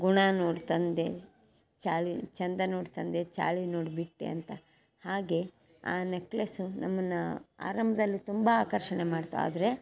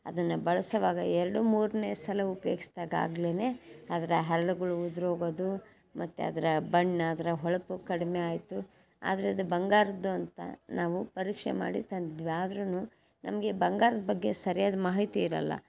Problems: none marked